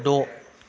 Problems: background sounds at intervals